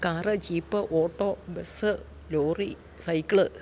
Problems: none marked